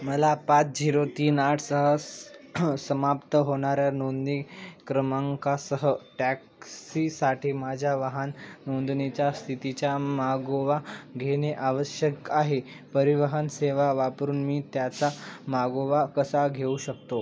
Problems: none marked